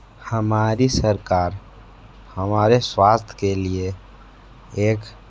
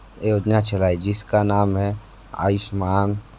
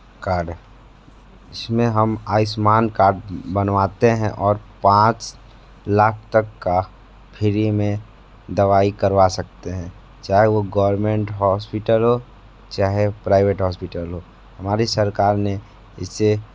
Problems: background sounds at intervals